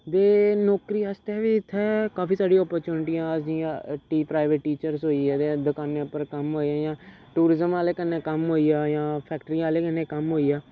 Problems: background sounds at intervals